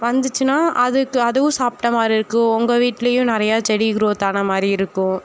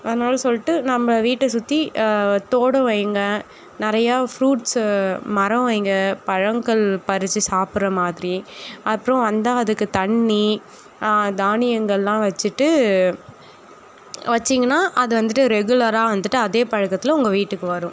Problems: none marked